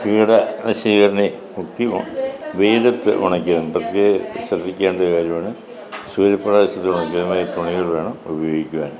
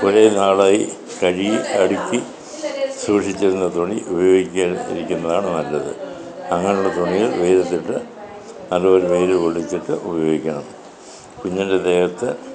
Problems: continuous background conversations